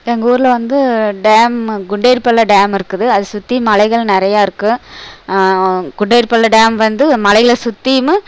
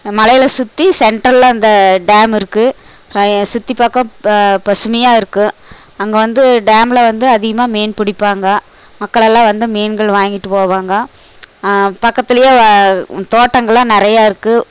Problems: background sounds at intervals